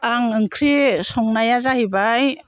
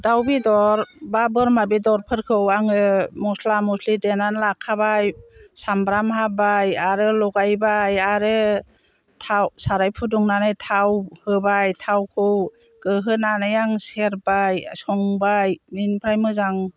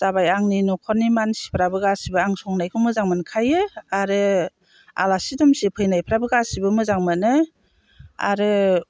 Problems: low volume